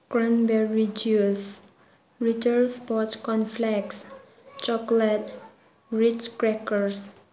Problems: background sounds at intervals